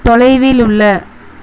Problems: constant background noise